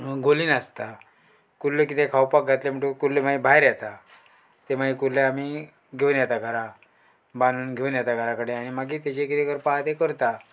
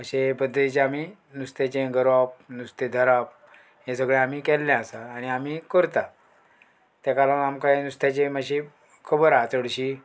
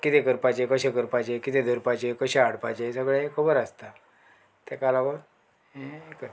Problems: background sounds at intervals